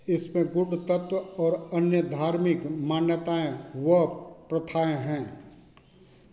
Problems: none marked